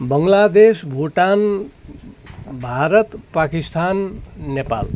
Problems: none marked